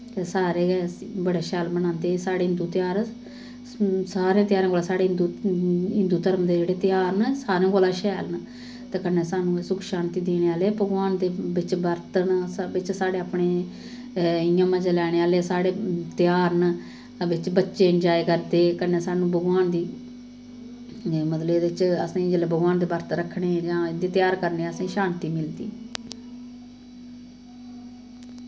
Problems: none marked